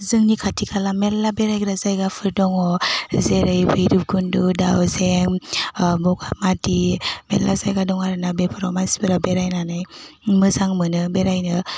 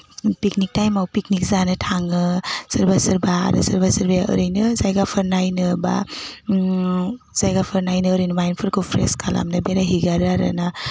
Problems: constant background noise